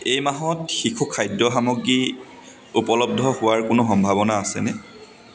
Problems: constant background noise, background conversations at intervals